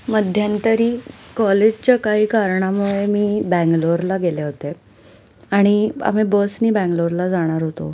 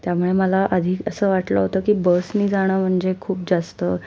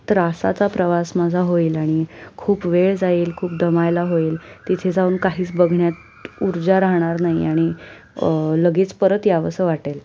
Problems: constant background noise, background conversations at intervals